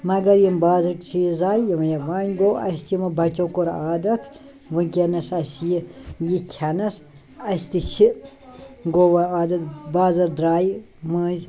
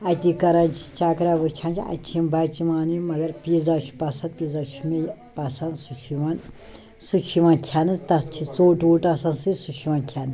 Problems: none marked